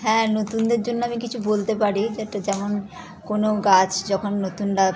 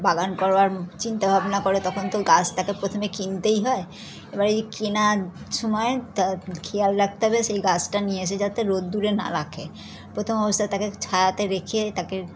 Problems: background sounds at intervals, continuous background conversations